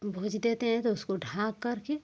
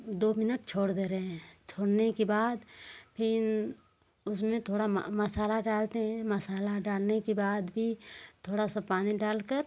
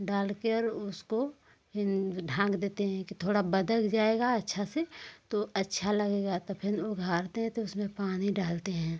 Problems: none marked